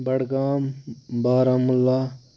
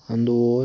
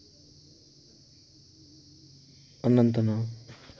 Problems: constant background noise